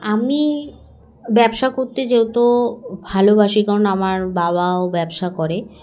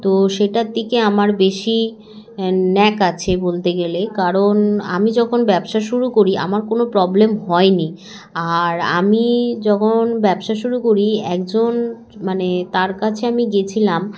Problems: none marked